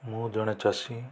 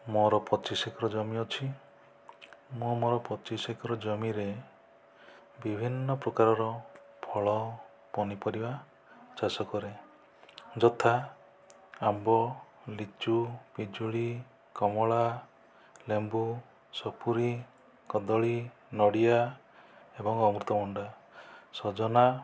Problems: low volume